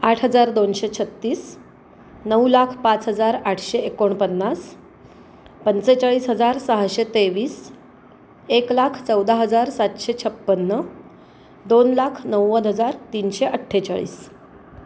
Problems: constant background noise